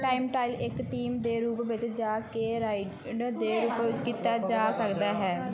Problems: continuous background conversations